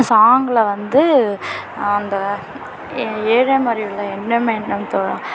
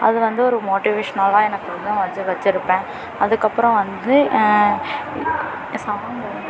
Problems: constant background noise, background conversations at intervals